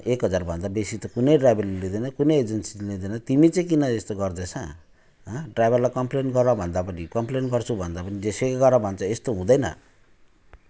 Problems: none marked